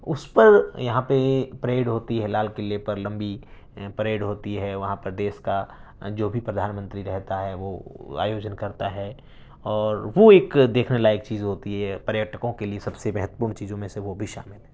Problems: none marked